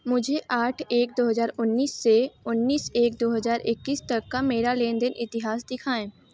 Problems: none marked